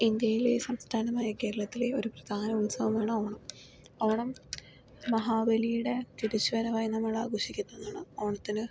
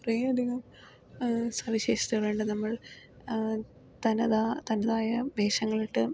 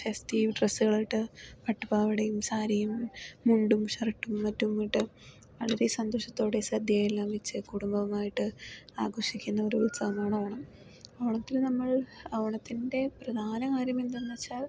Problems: low volume